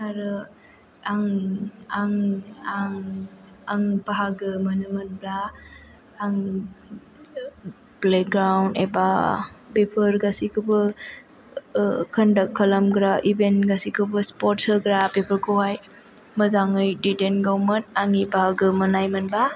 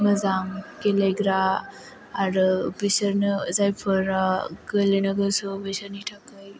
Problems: background sounds at intervals